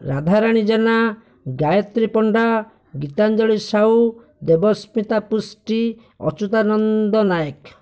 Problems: none marked